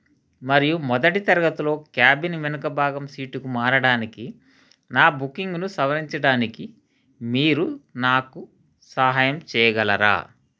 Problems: background sounds at intervals